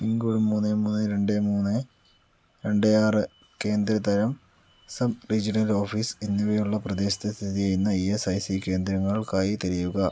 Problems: none marked